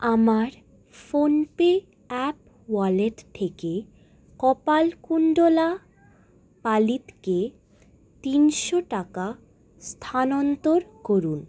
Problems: none marked